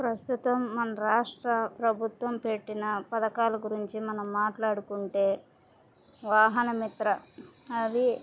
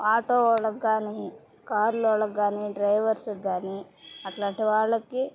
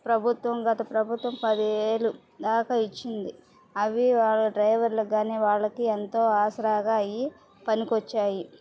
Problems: background sounds at intervals